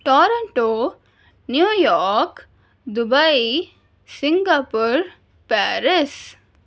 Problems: none marked